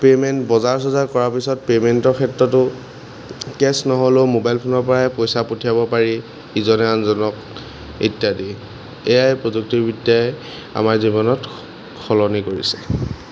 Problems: background sounds at intervals